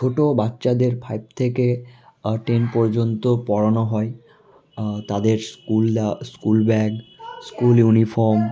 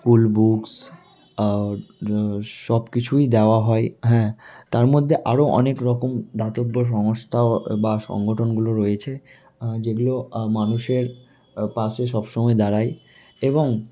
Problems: constant background noise